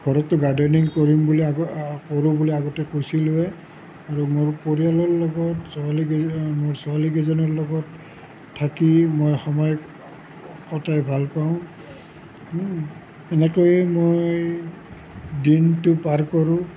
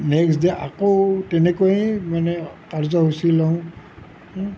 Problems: none marked